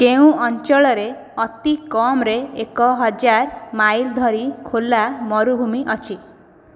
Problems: none marked